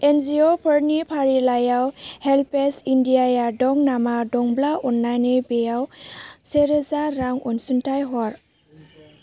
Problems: low volume